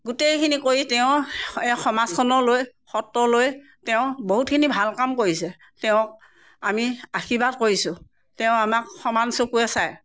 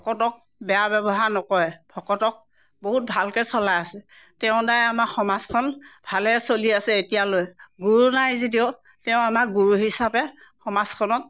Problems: none marked